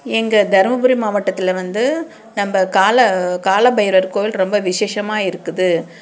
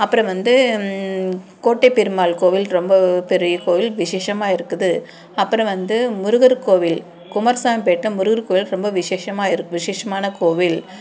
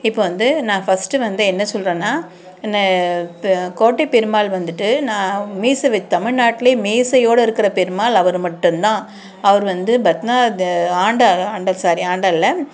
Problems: constant background noise